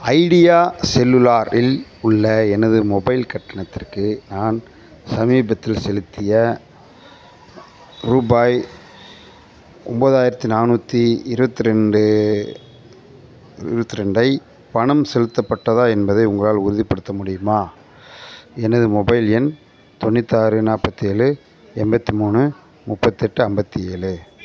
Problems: constant background noise